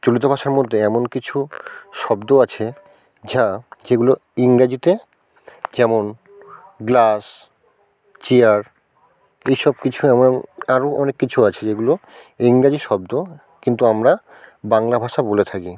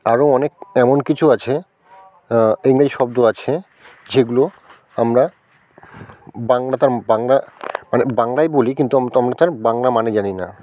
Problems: background conversations at intervals